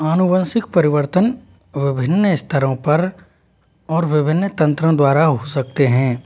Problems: none marked